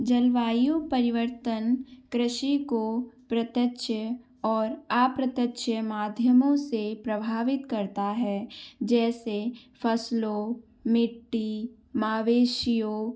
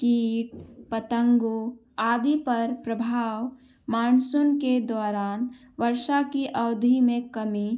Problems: background sounds at intervals